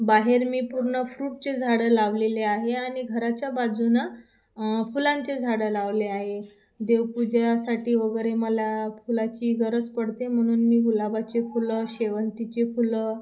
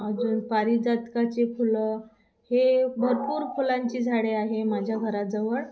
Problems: constant background noise